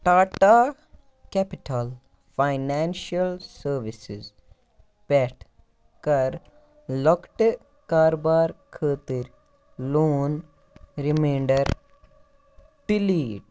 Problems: none marked